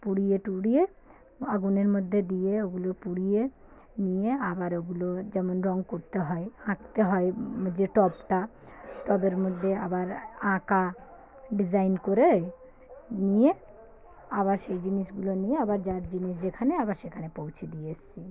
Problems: background sounds at intervals